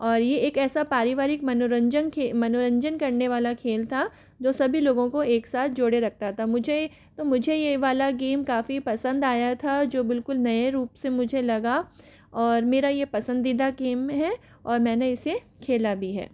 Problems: none marked